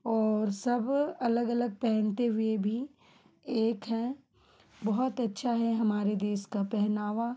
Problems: constant background noise